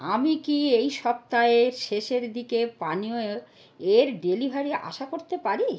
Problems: none marked